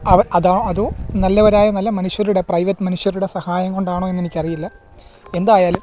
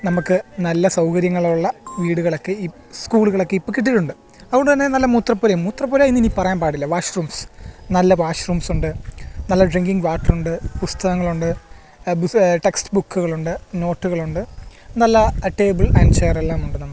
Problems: background sounds at intervals